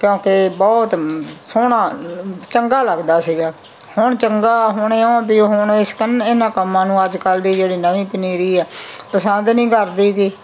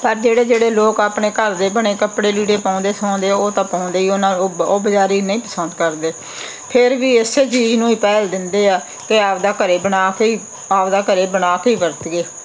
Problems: background sounds at intervals